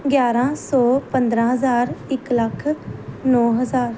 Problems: background sounds at intervals